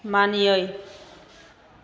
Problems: none marked